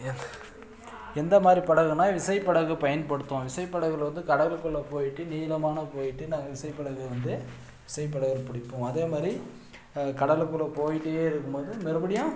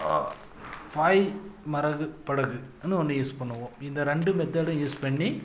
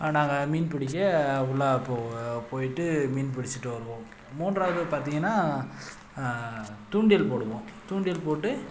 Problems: background sounds at intervals